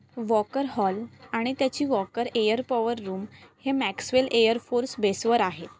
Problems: none marked